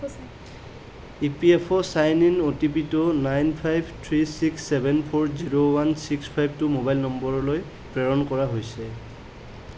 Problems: background conversations at intervals